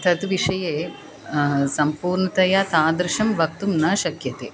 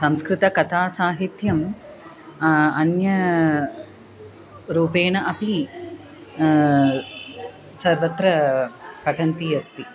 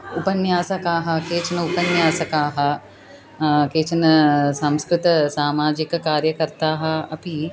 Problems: background conversations at intervals